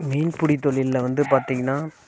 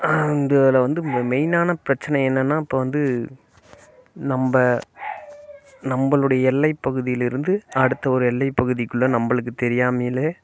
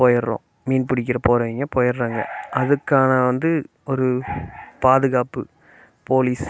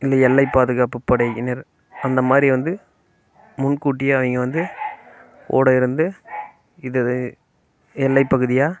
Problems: constant background noise